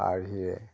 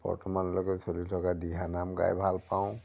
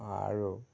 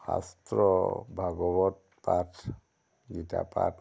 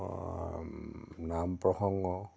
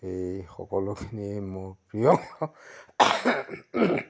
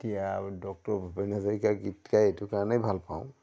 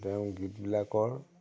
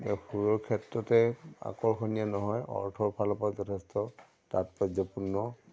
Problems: none marked